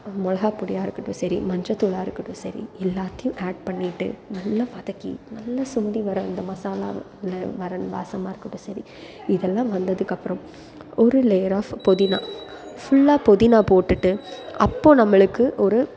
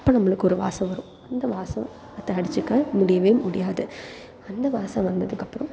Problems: constant background noise